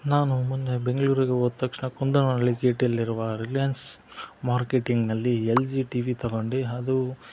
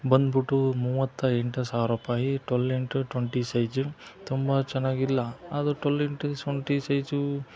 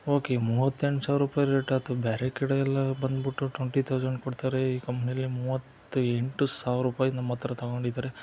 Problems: none marked